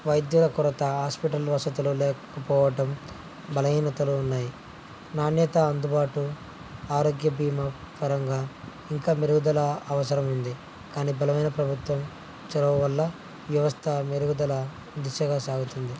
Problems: low volume